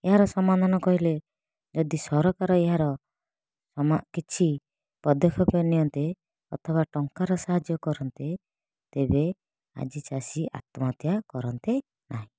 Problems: none marked